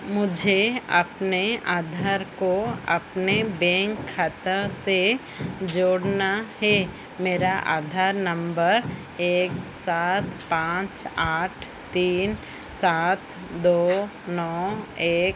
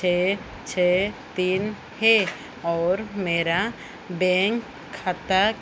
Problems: constant background noise